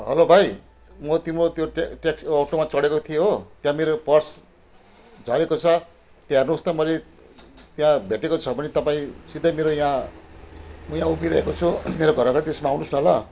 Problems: background sounds at intervals